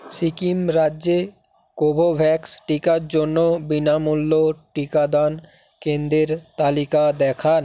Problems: background sounds at intervals